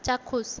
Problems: constant background noise